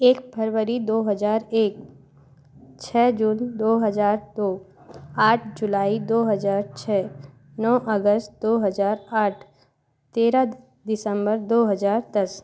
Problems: none marked